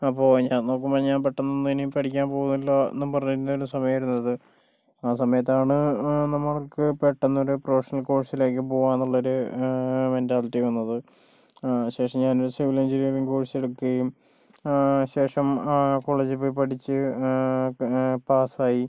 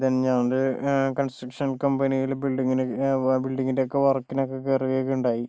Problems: low volume